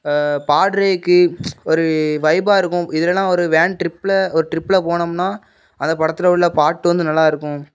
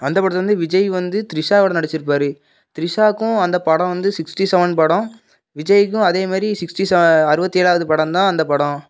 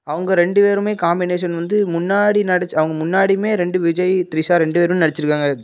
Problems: none marked